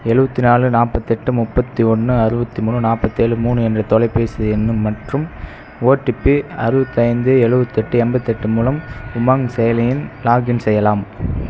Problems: background sounds at intervals